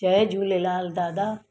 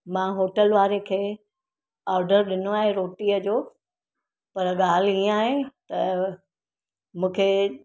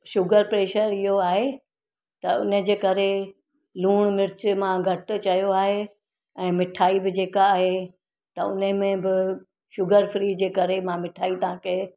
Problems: none marked